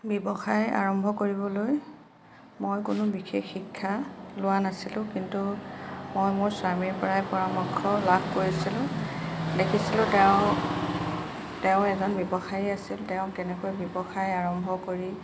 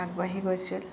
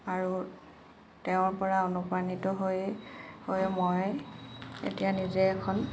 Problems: none marked